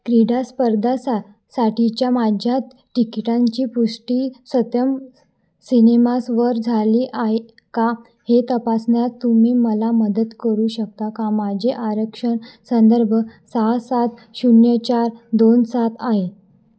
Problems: background sounds at intervals, echo